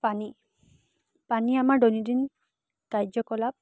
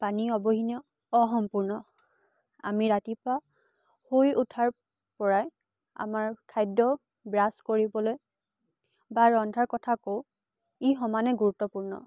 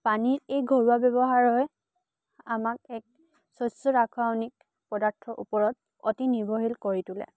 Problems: constant background noise